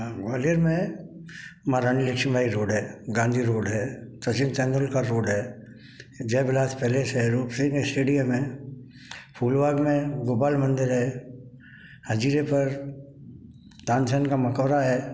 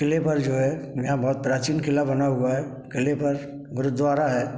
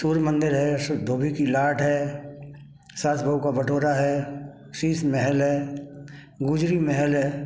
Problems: background sounds at intervals